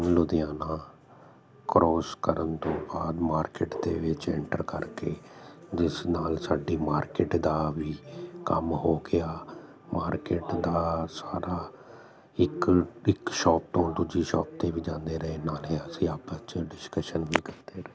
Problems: constant background noise